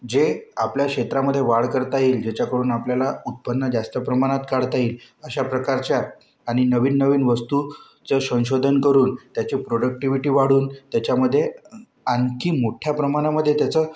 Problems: none marked